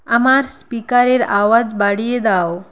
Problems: constant background noise